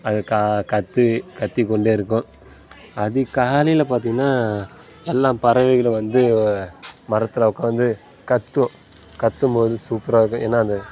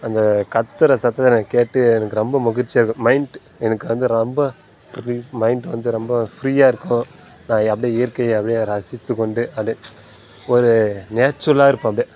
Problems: constant background noise